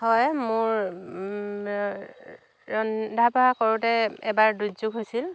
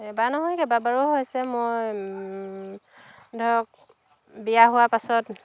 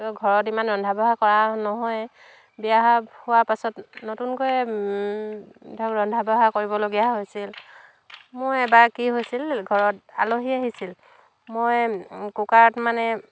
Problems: none marked